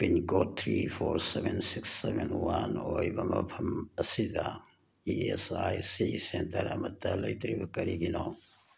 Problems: none marked